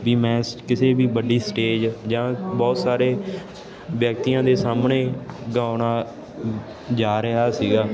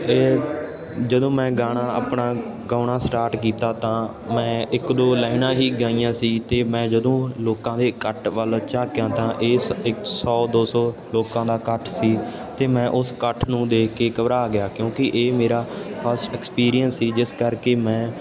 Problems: constant background noise